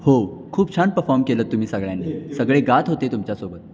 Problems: background sounds at intervals, background conversations at intervals